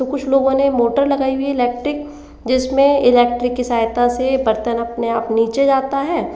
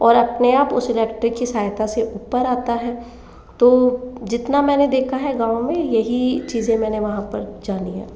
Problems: constant background noise, background conversations at intervals, echo